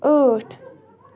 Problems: constant background noise